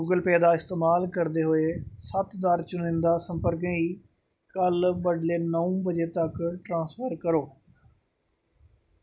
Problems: none marked